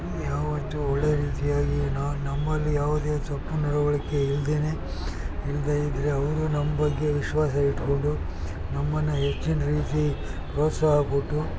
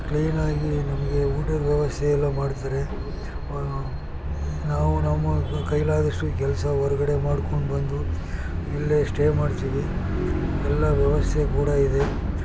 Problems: constant background noise, background conversations at intervals